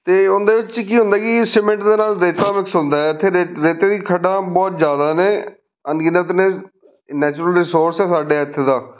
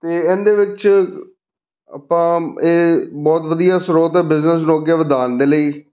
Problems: none marked